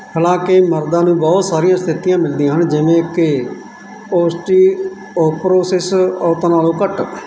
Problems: background sounds at intervals